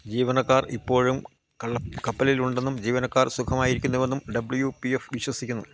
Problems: constant background noise